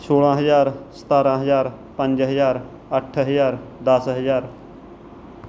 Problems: background sounds at intervals